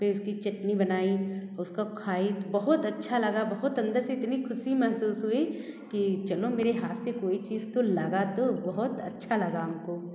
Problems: background sounds at intervals